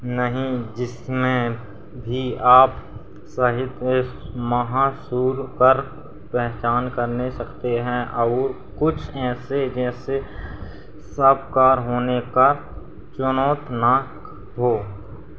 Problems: constant background noise